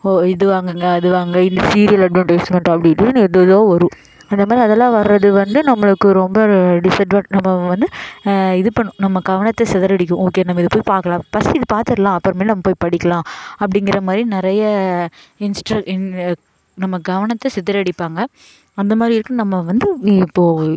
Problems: none marked